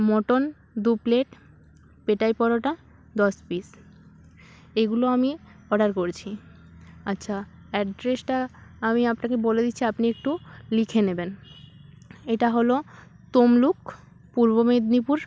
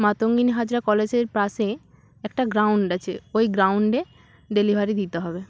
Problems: background sounds at intervals